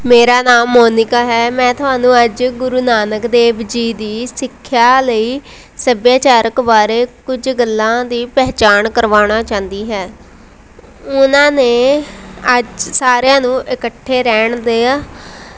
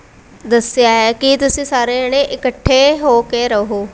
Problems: none marked